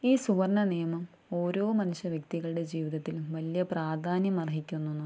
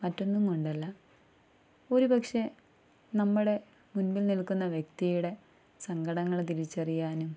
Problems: none marked